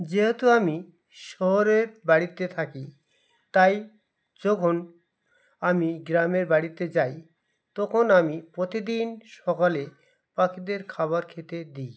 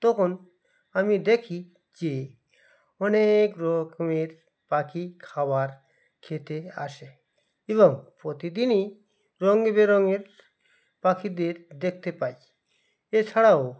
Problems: background sounds at intervals, background conversations at intervals